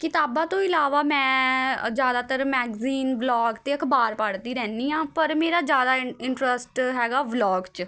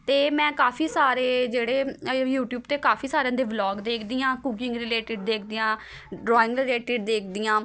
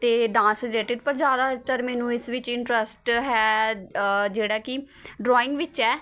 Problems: constant background noise, continuous background conversations